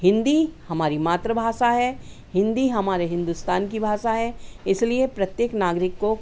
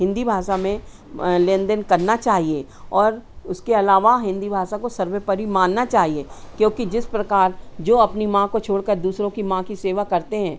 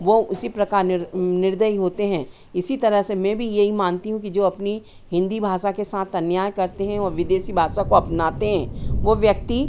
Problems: constant background noise, background conversations at intervals